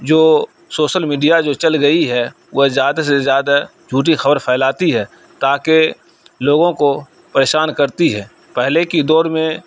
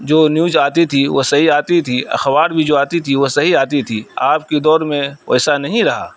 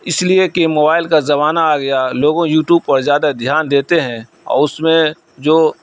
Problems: none marked